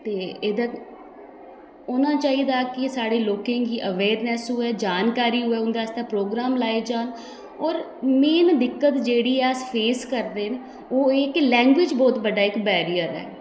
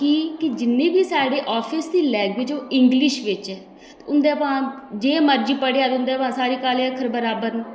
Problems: constant background noise, echo